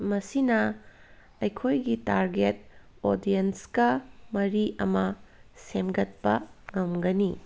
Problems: background sounds at intervals